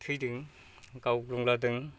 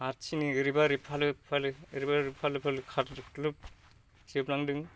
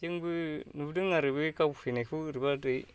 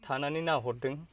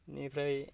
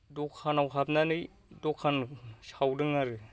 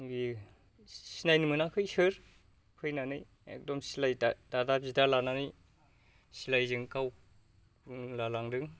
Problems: low volume